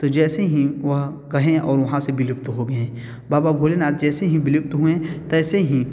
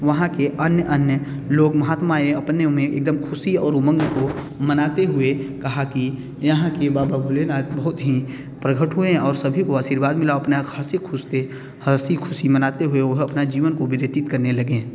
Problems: none marked